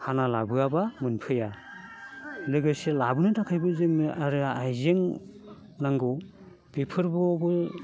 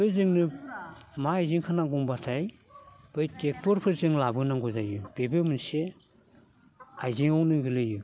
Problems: none marked